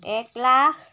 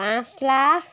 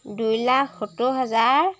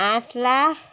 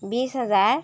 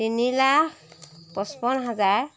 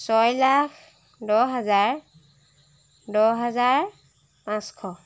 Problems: none marked